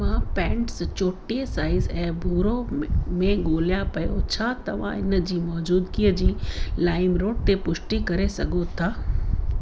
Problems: constant background noise